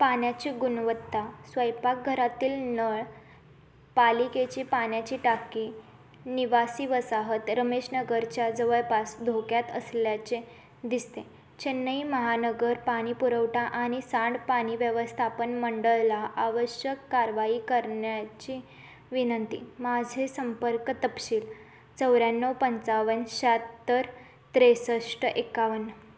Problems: constant background noise